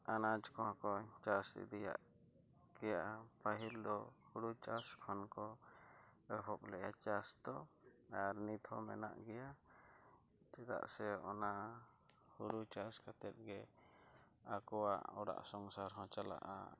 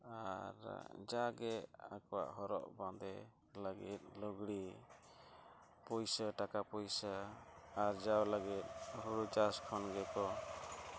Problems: low volume